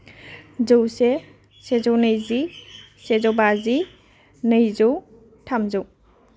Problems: none marked